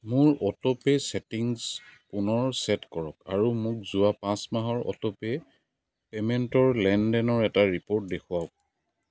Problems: background sounds at intervals